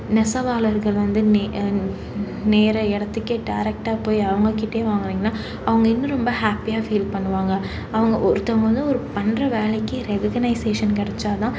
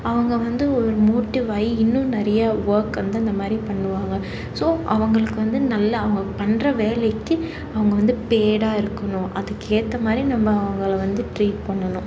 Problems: constant background noise, background conversations at intervals